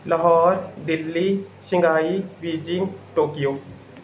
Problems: background sounds at intervals